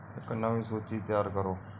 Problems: none marked